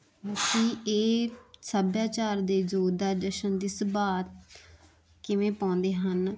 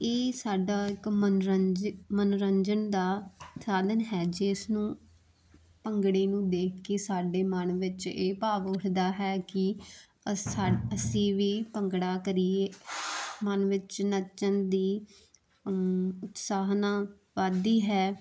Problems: constant background noise